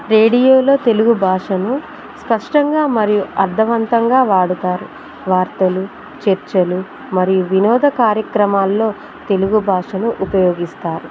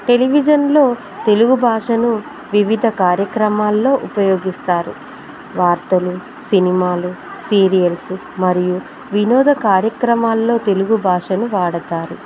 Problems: constant background noise